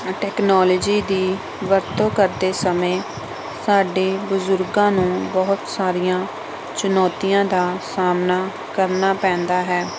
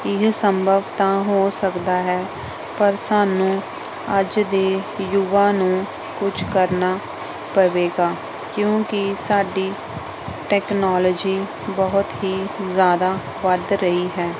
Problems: background sounds at intervals